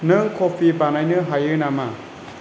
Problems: constant background noise